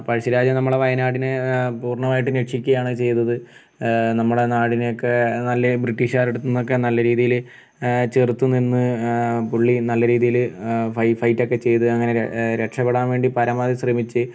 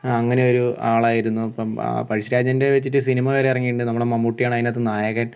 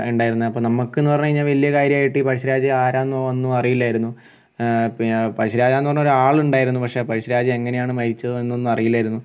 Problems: background sounds at intervals